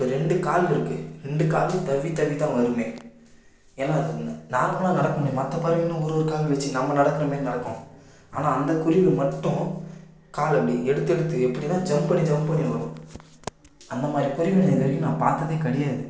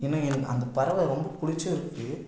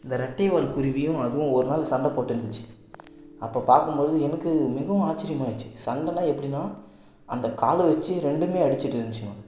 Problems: none marked